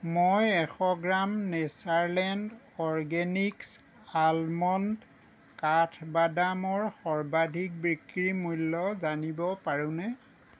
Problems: none marked